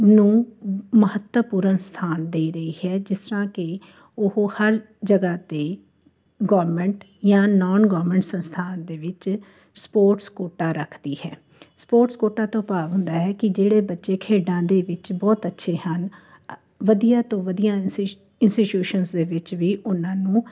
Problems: constant background noise